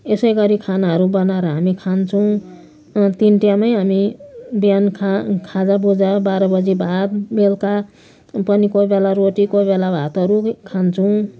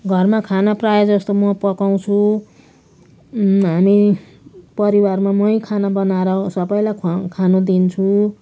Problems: constant background noise